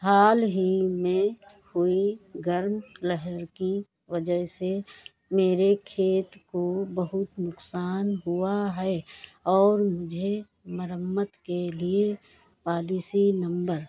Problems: constant background noise, background conversations at intervals